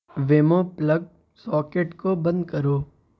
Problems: constant background noise